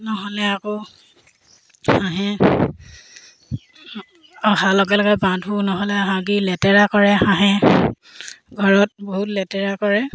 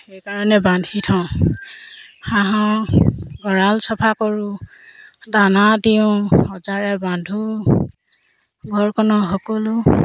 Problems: constant background noise, background conversations at intervals